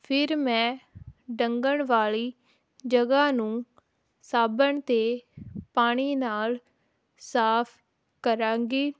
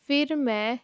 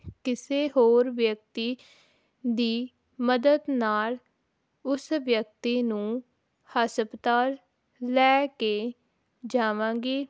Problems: none marked